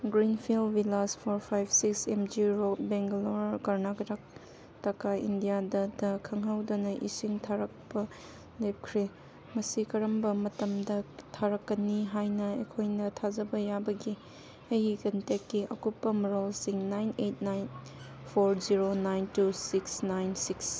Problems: background sounds at intervals